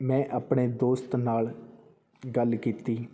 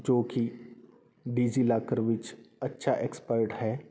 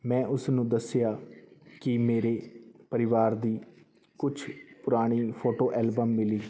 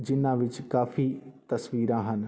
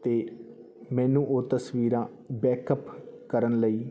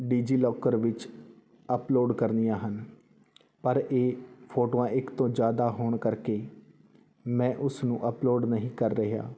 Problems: background sounds at intervals